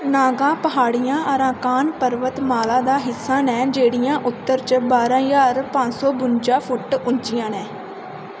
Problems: constant background noise